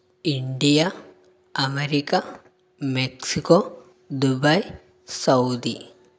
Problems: none marked